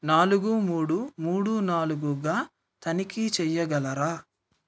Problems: none marked